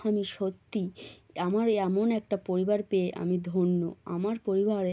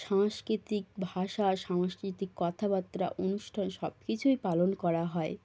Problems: none marked